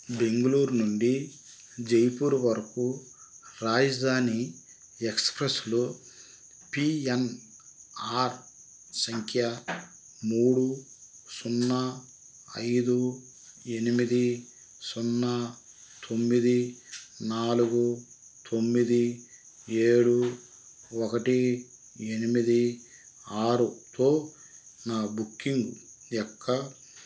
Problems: none marked